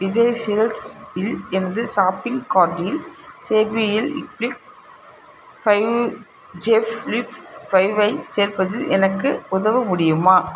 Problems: constant background noise